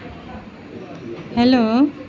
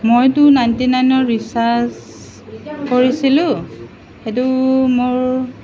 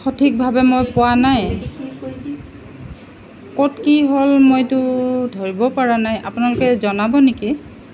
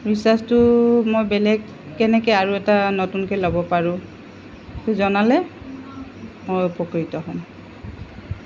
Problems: constant background noise